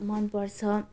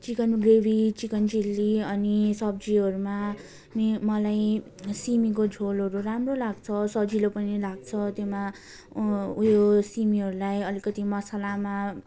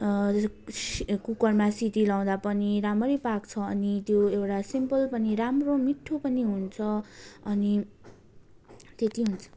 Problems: constant background noise, continuous background conversations